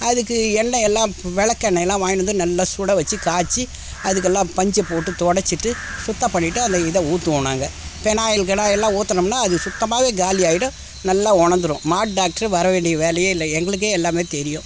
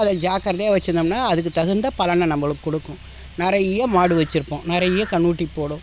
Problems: constant background noise